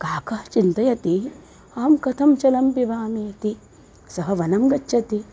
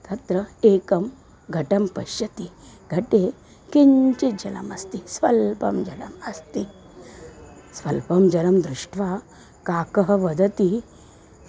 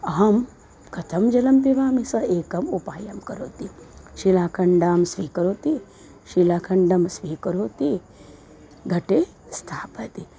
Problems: none marked